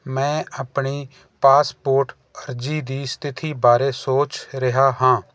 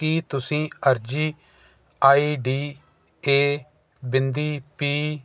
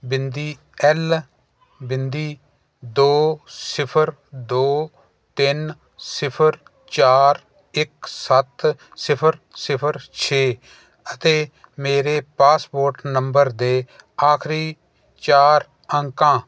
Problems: none marked